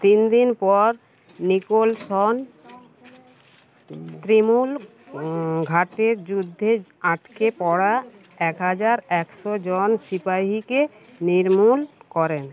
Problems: constant background noise